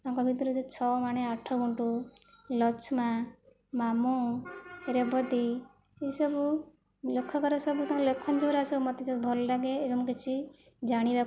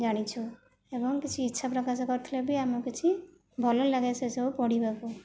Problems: low volume